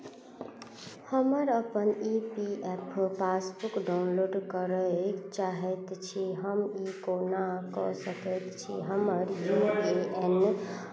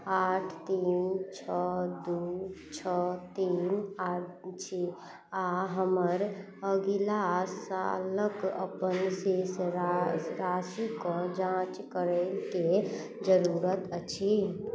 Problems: low volume